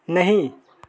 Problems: background sounds at intervals, continuous background conversations